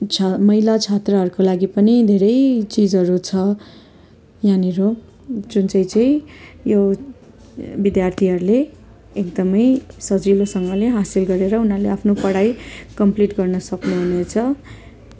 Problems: continuous background conversations